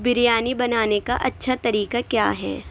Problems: constant background noise